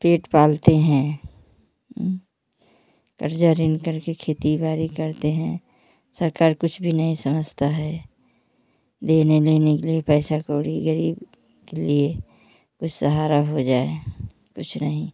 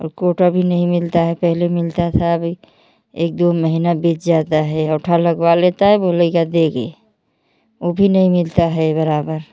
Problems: none marked